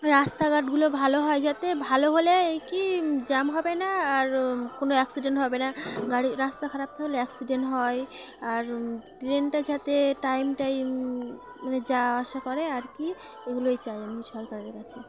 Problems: constant background noise